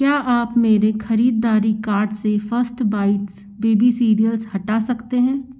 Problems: constant background noise